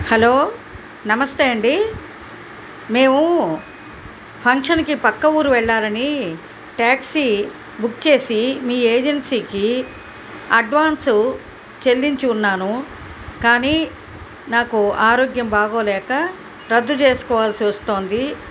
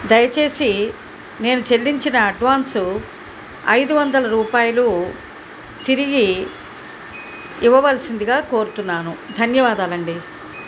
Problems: constant background noise